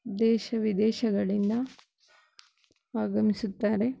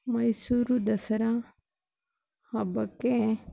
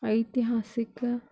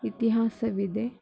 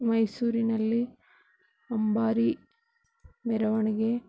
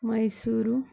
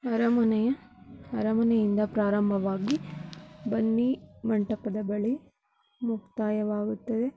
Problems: none marked